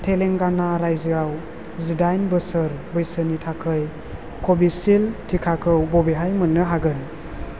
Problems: constant background noise